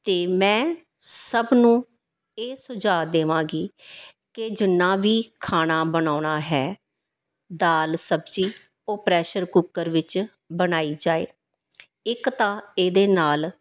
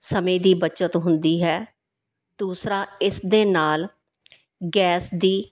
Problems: background sounds at intervals